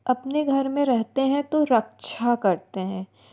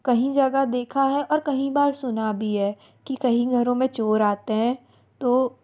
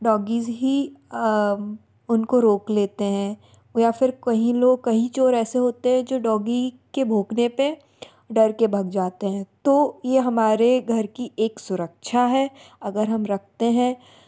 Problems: background sounds at intervals